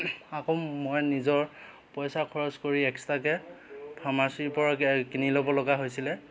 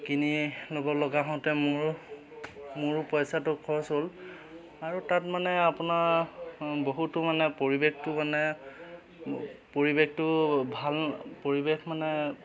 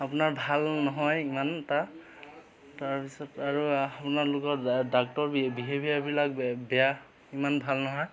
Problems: constant background noise, background conversations at intervals